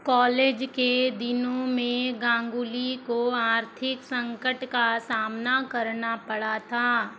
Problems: constant background noise